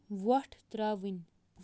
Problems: none marked